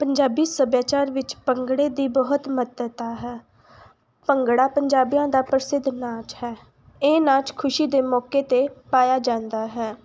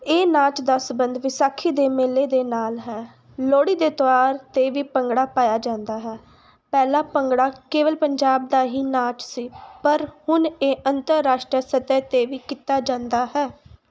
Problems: background sounds at intervals